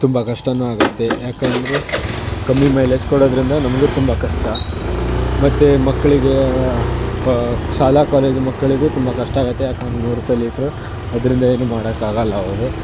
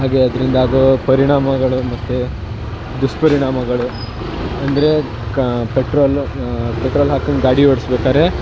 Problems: constant background noise